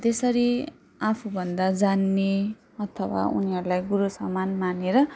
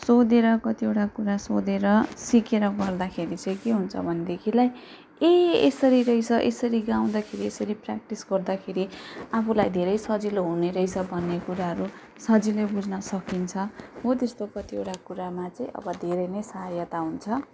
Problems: background sounds at intervals